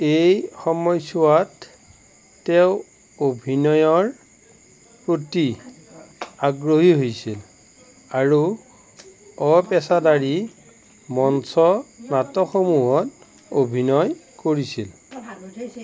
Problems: background conversations at intervals